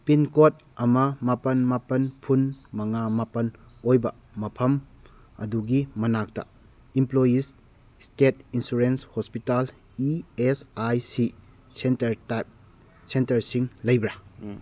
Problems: none marked